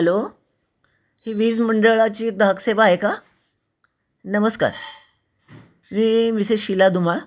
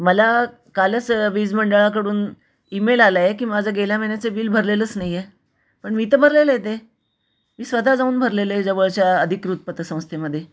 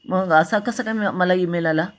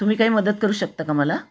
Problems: constant background noise, echo